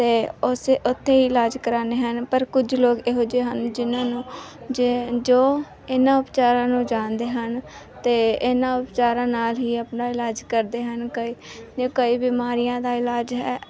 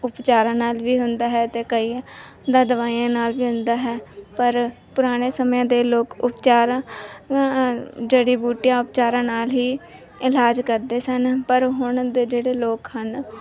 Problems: background sounds at intervals, background conversations at intervals